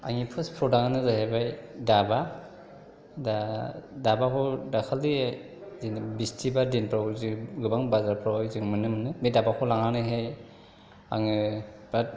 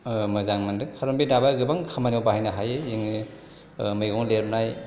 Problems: none marked